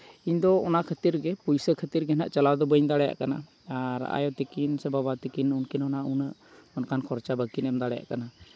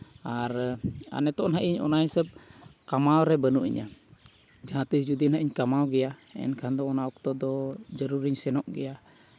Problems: none marked